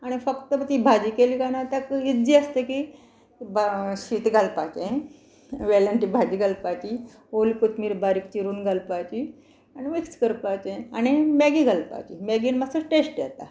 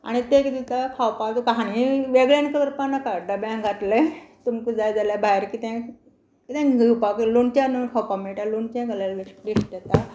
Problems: constant background noise